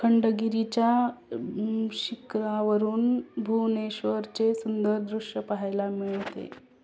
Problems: constant background noise, background conversations at intervals